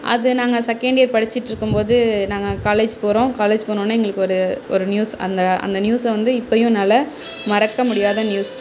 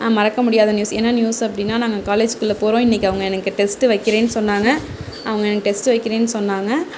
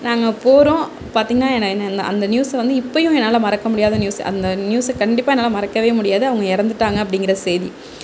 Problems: none marked